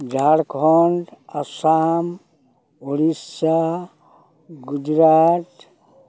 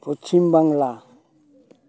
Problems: constant background noise, background conversations at intervals